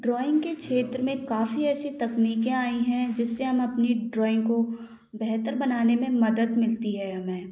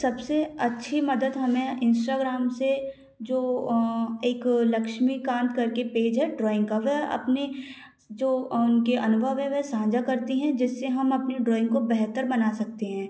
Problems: background sounds at intervals